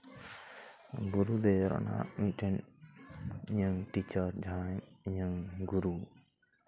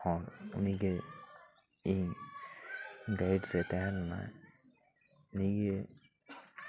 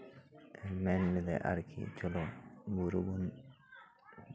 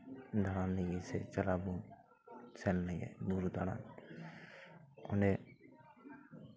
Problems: background sounds at intervals, continuous background conversations